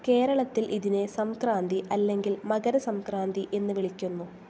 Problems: constant background noise, low volume